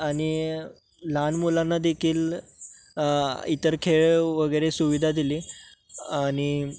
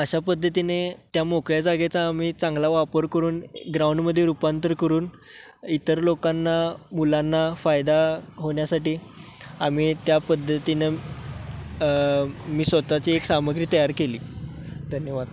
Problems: constant background noise, background conversations at intervals